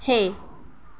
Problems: none marked